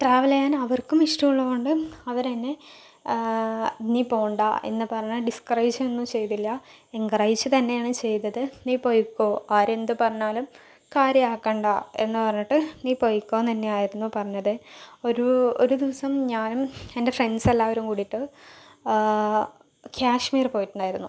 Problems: low volume